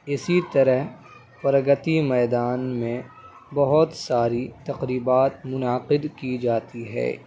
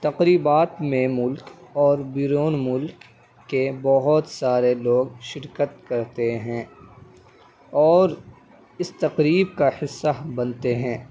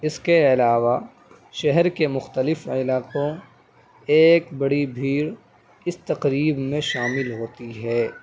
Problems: constant background noise, background conversations at intervals